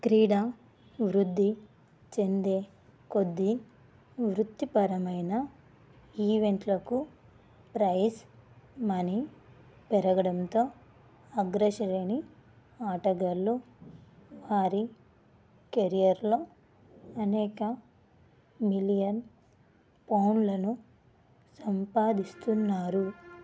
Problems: low volume